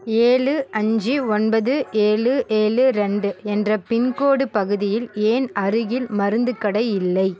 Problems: continuous background conversations